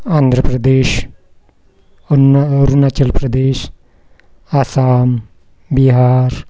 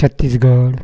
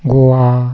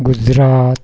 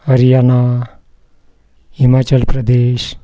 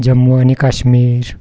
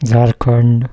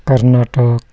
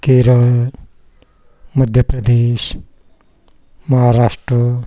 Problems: none marked